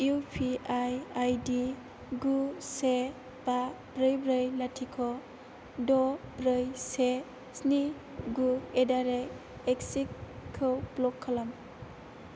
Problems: low volume